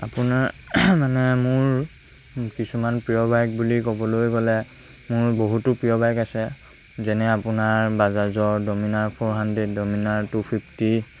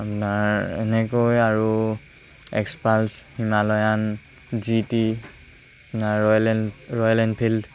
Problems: constant background noise